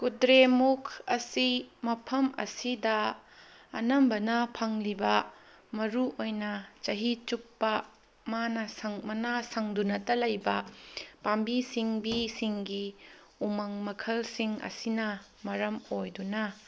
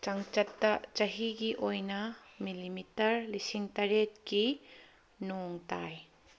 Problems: none marked